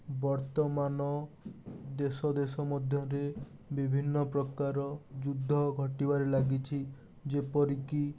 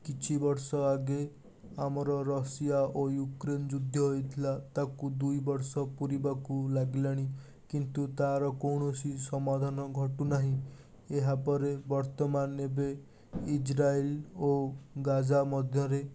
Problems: constant background noise